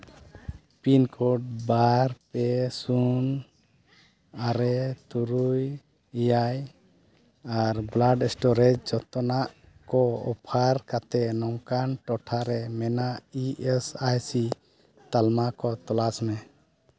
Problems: background sounds at intervals